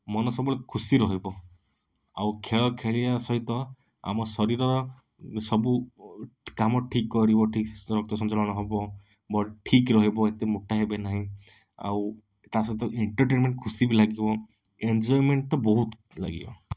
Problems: none marked